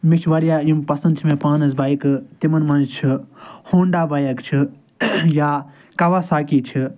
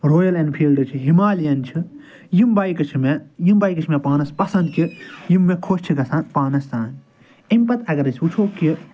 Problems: none marked